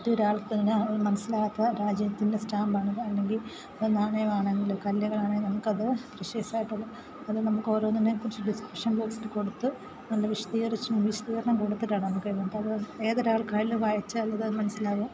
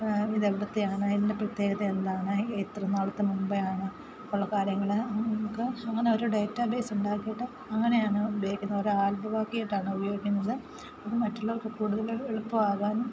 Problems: constant background noise